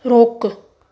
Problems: none marked